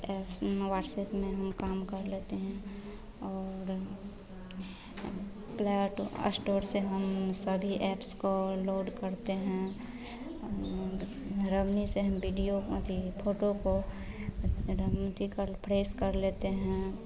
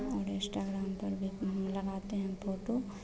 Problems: constant background noise, continuous background conversations